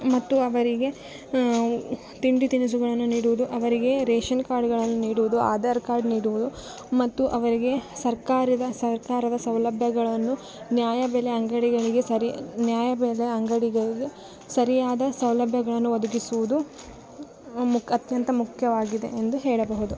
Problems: background sounds at intervals